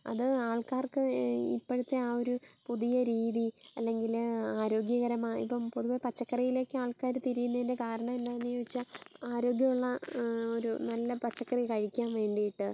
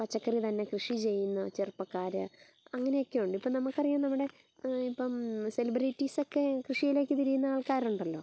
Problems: low volume